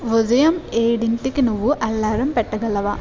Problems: none marked